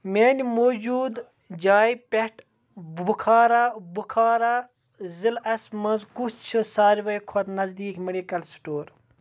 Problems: background conversations at intervals